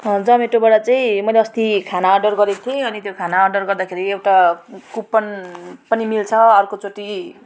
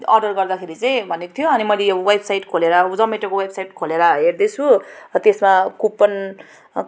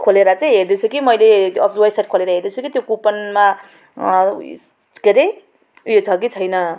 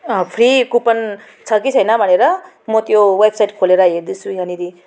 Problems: background sounds at intervals